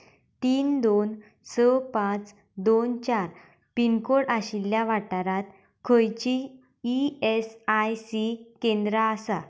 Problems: none marked